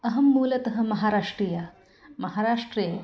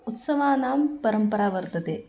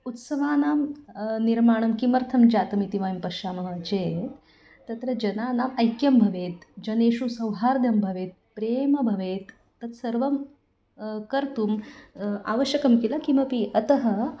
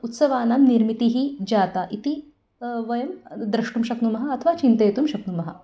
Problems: none marked